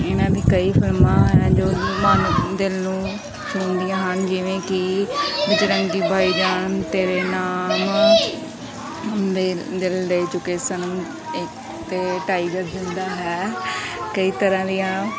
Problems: background conversations at intervals